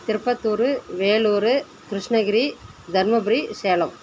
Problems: constant background noise